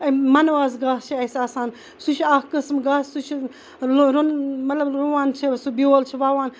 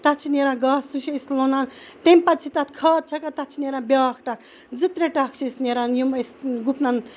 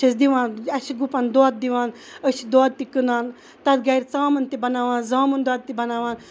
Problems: none marked